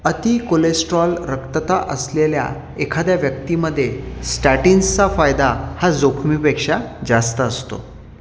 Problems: constant background noise